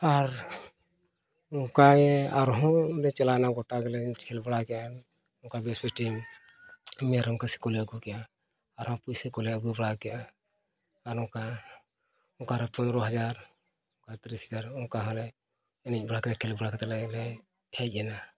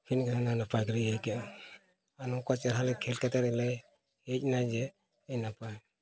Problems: background sounds at intervals, background conversations at intervals